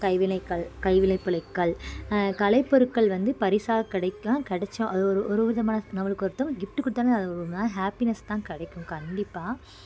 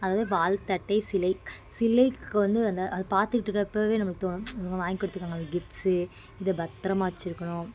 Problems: background sounds at intervals